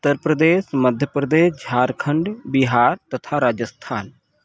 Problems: none marked